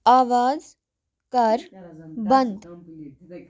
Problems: none marked